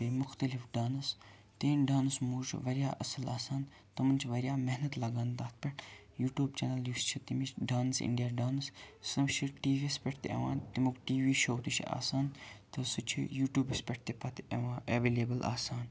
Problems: background sounds at intervals, low volume